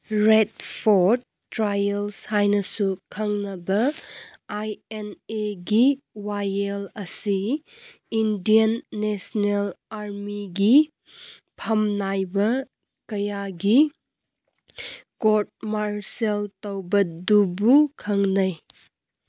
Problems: none marked